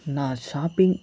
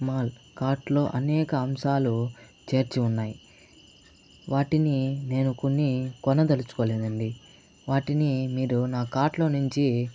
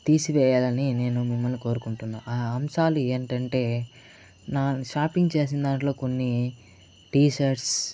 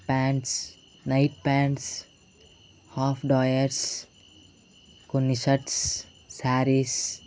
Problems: constant background noise